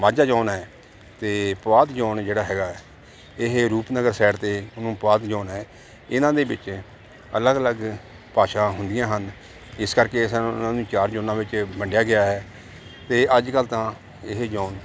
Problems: none marked